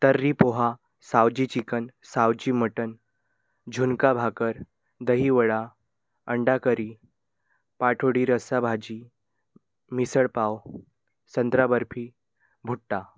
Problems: background sounds at intervals